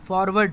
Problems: constant background noise